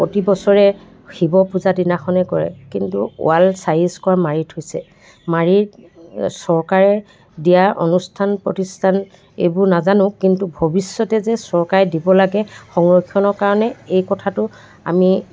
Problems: background conversations at intervals